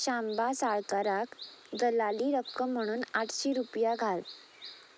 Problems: constant background noise